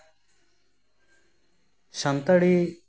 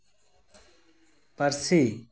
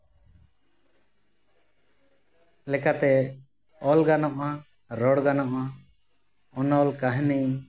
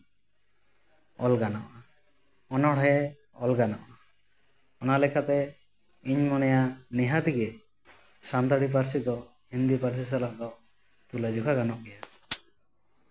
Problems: constant background noise, echo